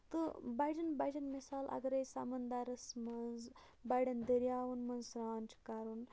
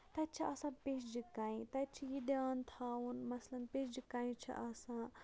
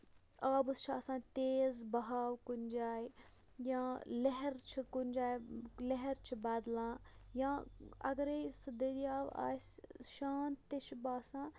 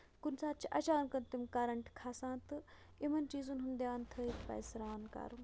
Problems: background sounds at intervals, low volume